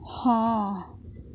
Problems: none marked